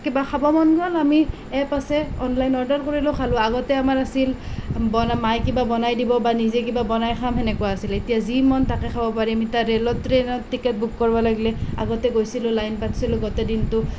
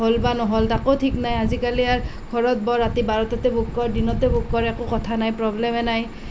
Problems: none marked